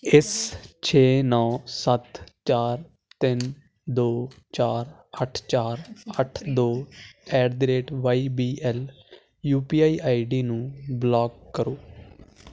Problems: constant background noise